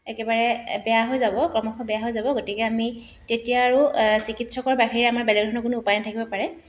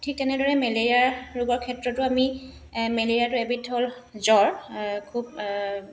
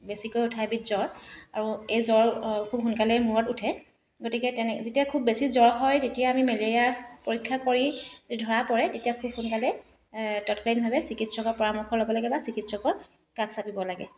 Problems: constant background noise